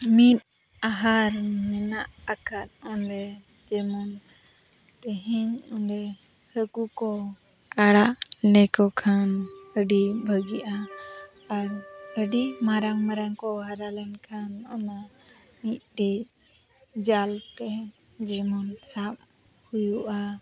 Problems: constant background noise, background conversations at intervals